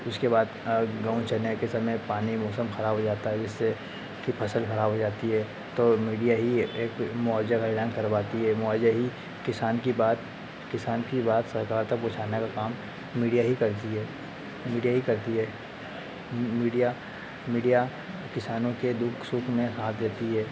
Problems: constant background noise